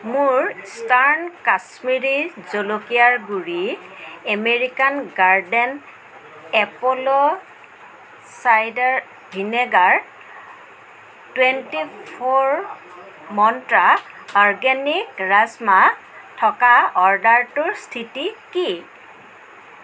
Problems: background sounds at intervals, continuous background conversations